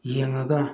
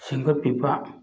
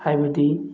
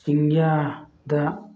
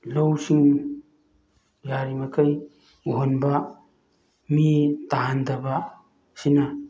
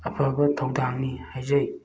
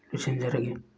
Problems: background sounds at intervals